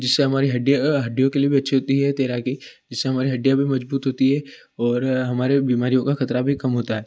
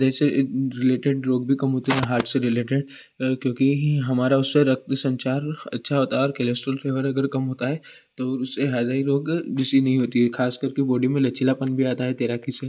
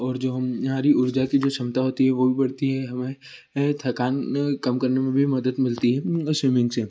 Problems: constant background noise